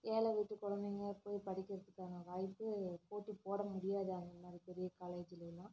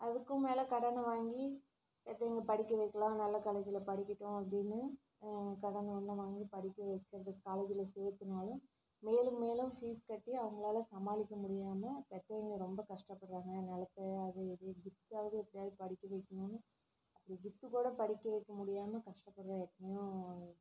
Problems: low volume